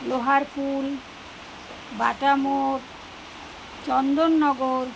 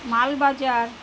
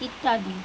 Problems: constant background noise